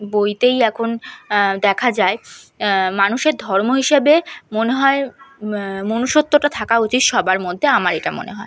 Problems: none marked